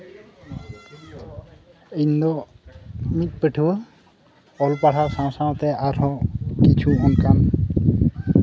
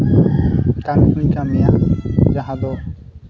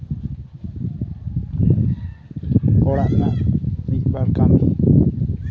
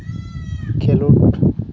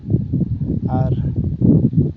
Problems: background sounds at intervals